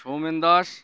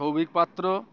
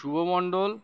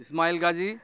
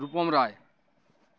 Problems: constant background noise